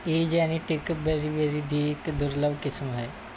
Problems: background sounds at intervals